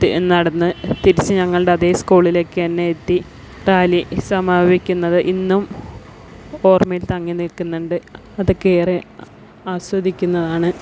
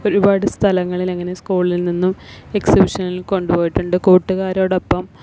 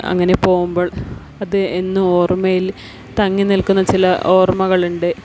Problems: background sounds at intervals